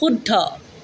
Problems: none marked